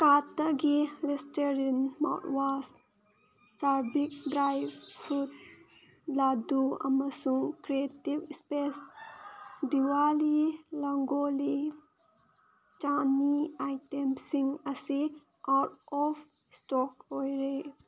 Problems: background sounds at intervals